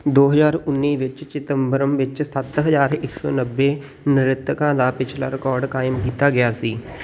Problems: constant background noise